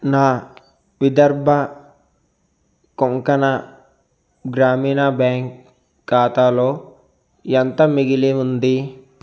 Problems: constant background noise